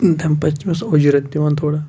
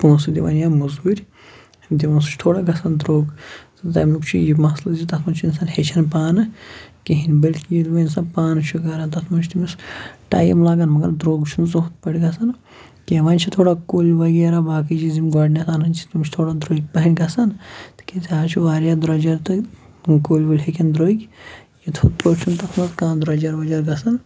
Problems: none marked